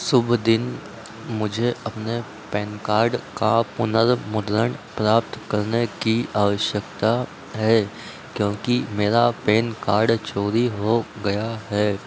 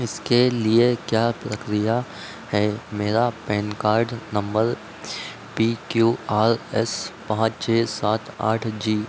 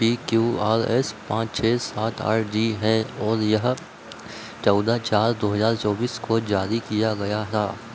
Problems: none marked